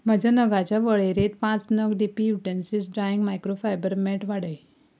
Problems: none marked